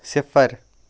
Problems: none marked